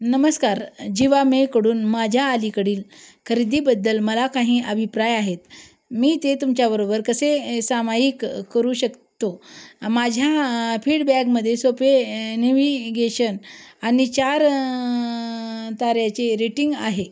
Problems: background sounds at intervals